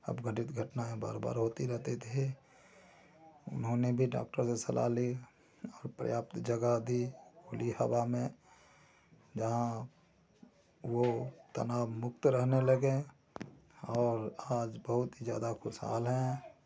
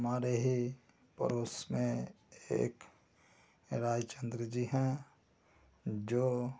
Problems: constant background noise, low volume